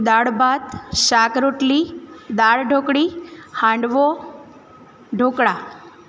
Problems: constant background noise